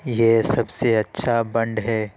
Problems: constant background noise